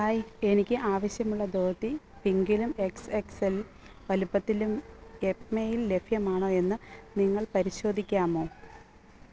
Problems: background sounds at intervals